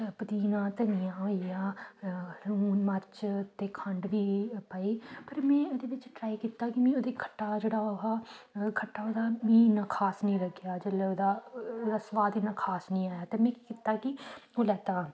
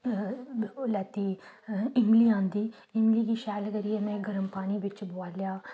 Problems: background sounds at intervals